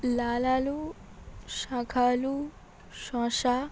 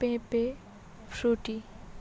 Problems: constant background noise